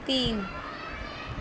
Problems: constant background noise